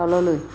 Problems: constant background noise